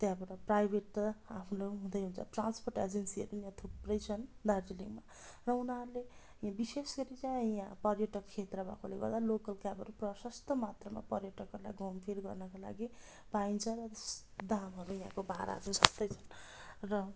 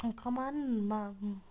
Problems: background sounds at intervals